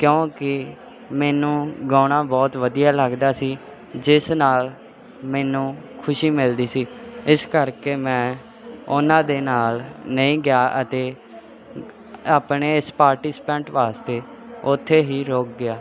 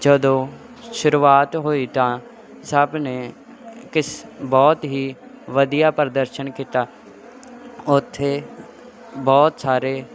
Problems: constant background noise